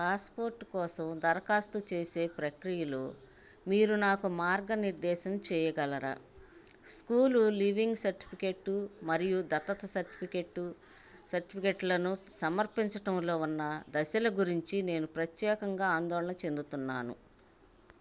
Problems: constant background noise